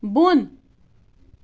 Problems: background sounds at intervals